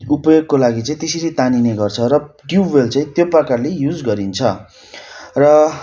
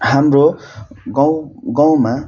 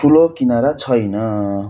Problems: constant background noise